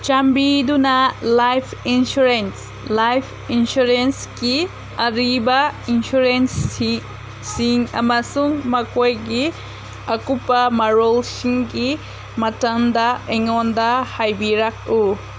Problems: constant background noise